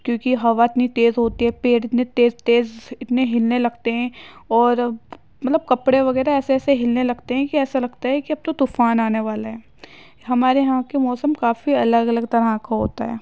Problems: none marked